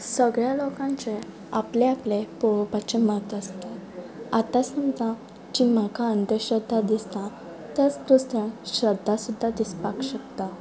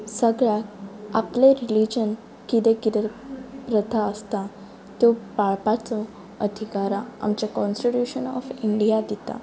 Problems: background sounds at intervals